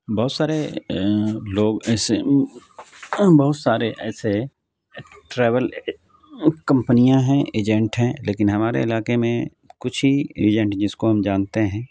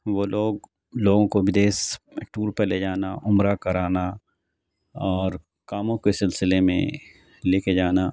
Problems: none marked